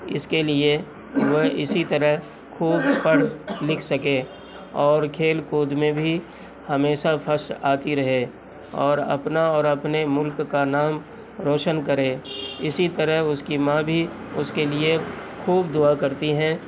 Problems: constant background noise